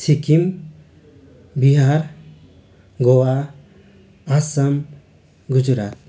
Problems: constant background noise